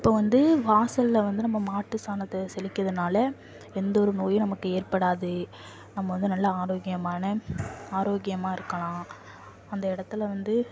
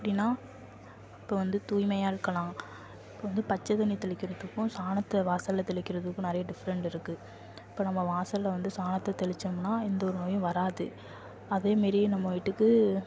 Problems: low volume